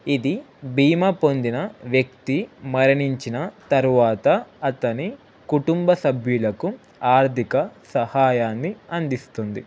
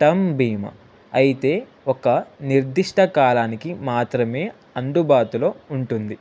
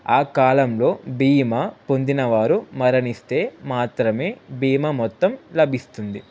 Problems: constant background noise